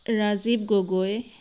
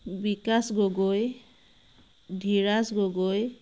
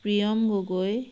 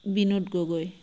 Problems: none marked